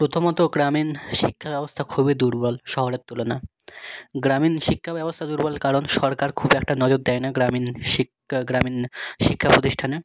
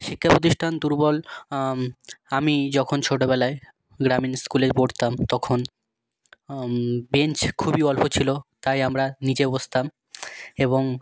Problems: background sounds at intervals